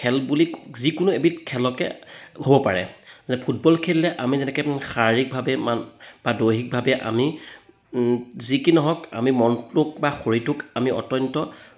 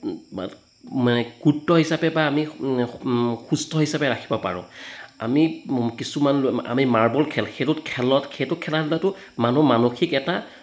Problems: background conversations at intervals